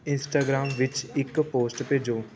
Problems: background sounds at intervals